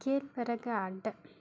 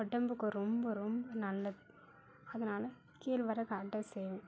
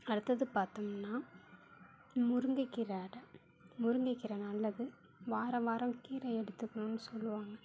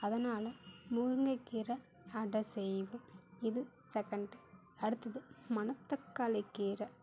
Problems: none marked